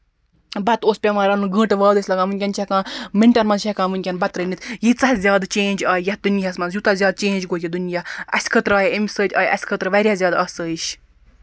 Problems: background sounds at intervals